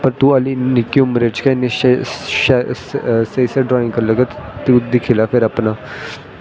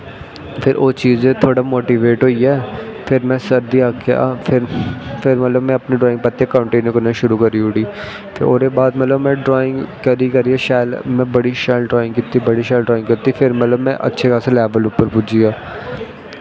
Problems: constant background noise